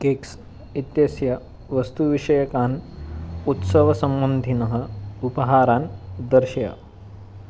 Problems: constant background noise